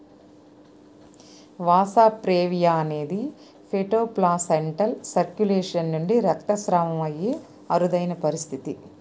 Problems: constant background noise